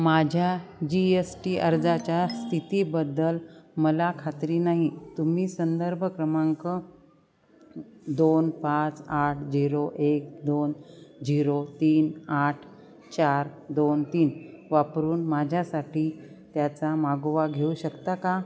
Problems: background sounds at intervals, background conversations at intervals